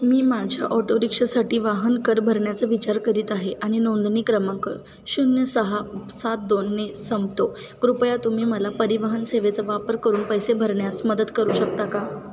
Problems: constant background noise, background conversations at intervals